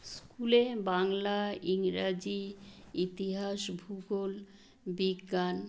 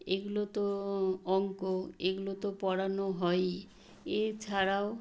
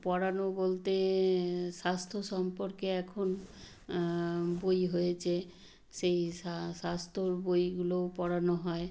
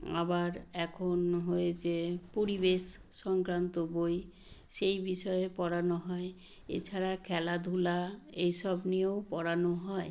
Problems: background sounds at intervals